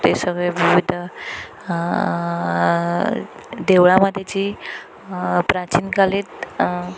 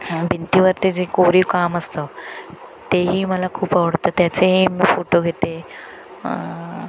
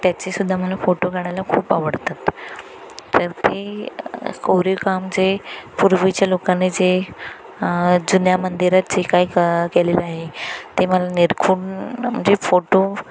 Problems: constant background noise